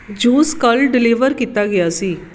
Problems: background sounds at intervals